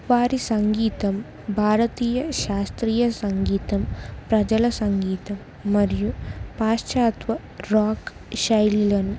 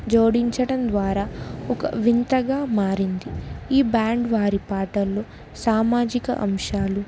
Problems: constant background noise, background conversations at intervals